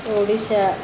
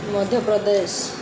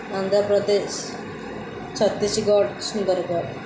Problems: constant background noise